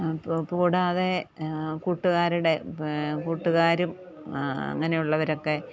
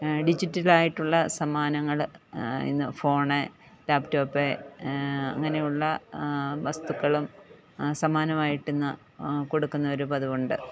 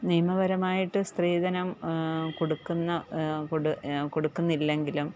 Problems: background conversations at intervals